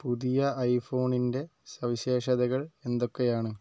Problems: low volume